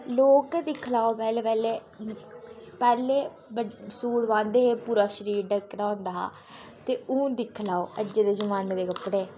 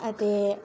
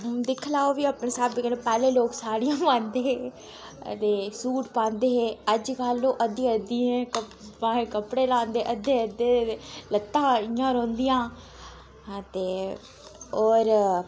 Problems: constant background noise